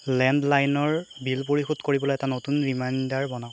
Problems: constant background noise